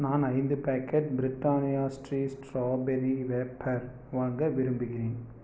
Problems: none marked